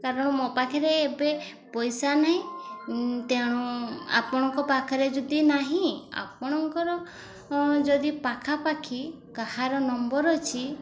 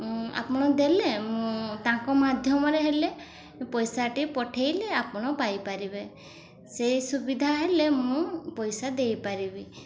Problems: constant background noise